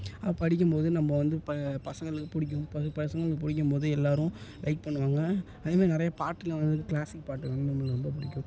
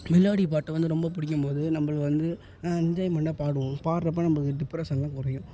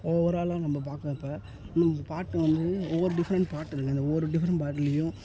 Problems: low volume